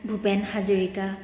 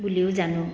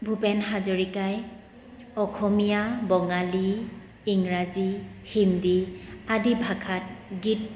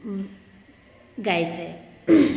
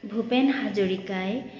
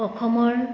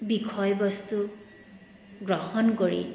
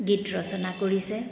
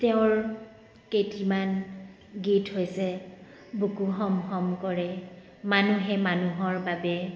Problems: none marked